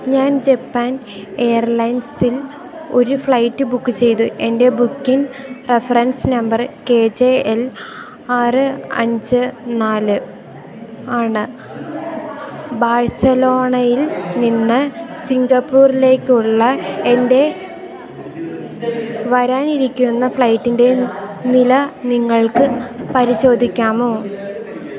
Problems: background sounds at intervals